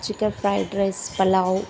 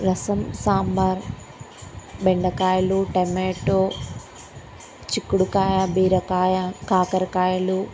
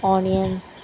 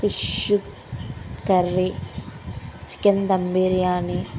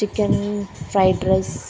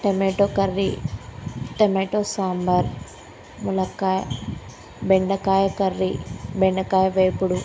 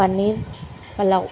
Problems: constant background noise